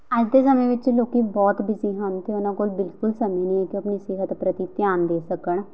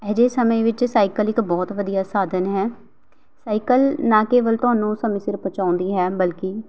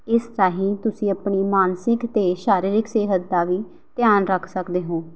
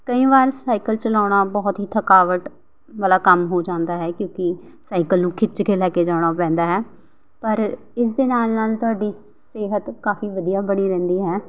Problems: background sounds at intervals